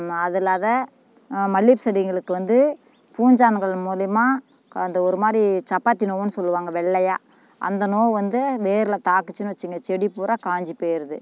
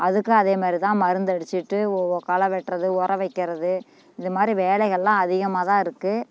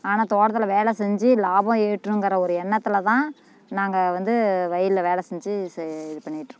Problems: none marked